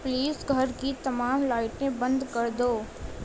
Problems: constant background noise, low volume